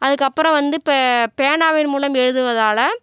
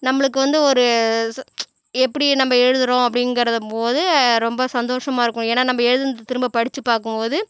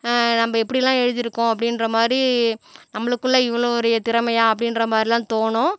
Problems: none marked